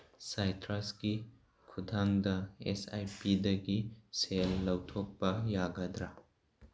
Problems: background sounds at intervals